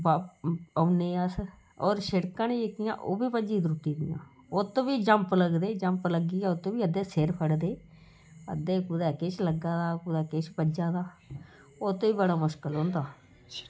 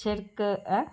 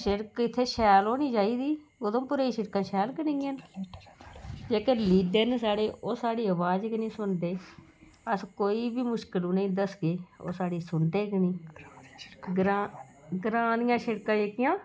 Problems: constant background noise